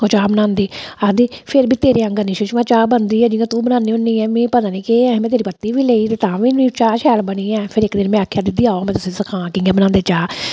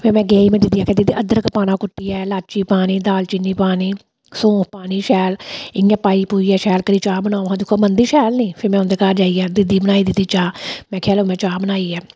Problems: none marked